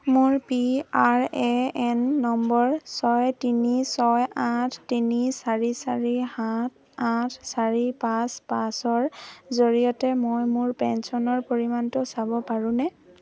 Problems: none marked